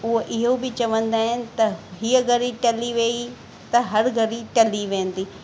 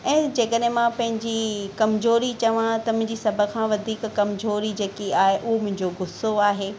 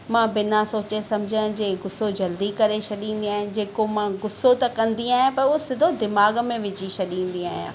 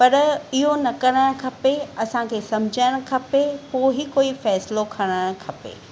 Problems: none marked